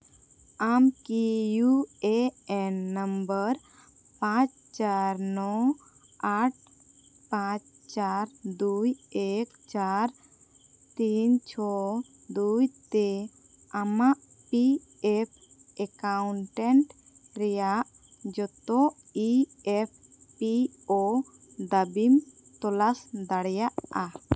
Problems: none marked